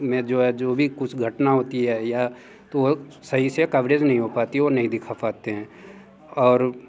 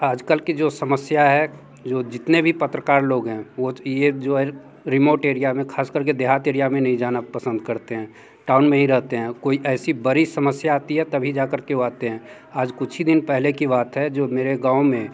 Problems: background sounds at intervals